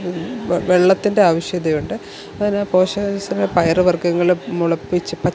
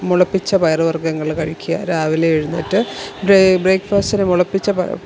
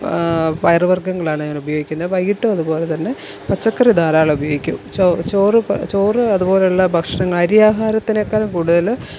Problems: background sounds at intervals